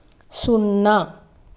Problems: constant background noise